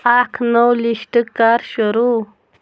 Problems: background sounds at intervals